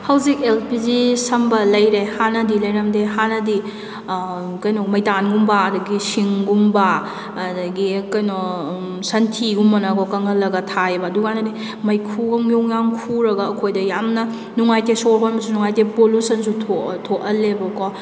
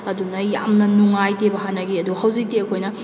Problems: background sounds at intervals